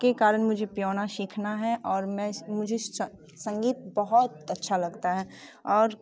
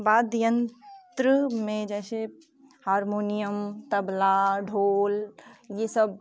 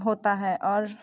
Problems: constant background noise